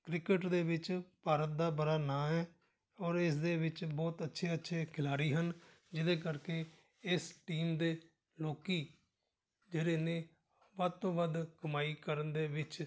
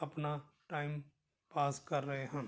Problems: none marked